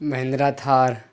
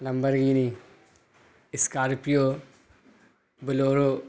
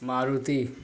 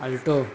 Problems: constant background noise